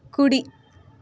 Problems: constant background noise